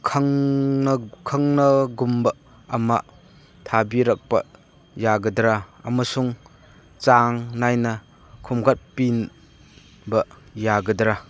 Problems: none marked